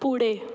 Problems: constant background noise